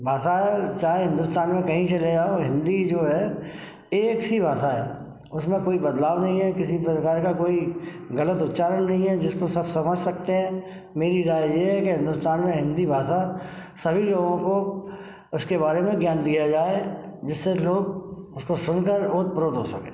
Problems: none marked